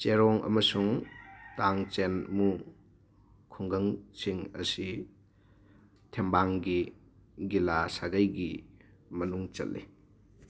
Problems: background sounds at intervals